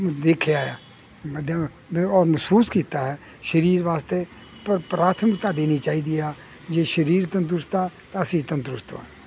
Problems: none marked